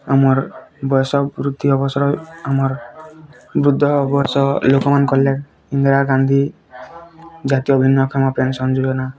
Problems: constant background noise